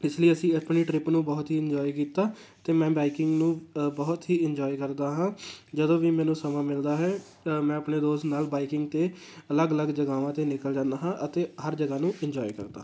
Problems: constant background noise